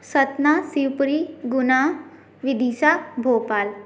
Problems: background sounds at intervals